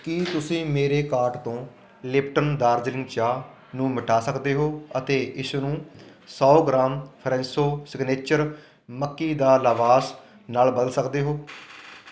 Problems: constant background noise